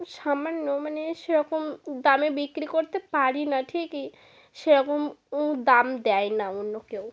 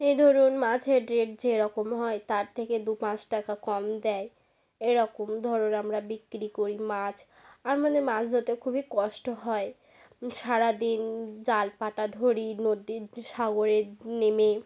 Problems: constant background noise